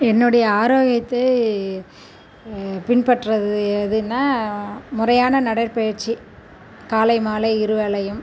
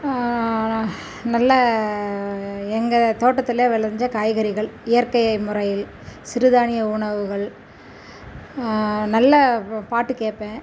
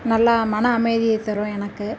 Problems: none marked